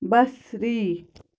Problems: none marked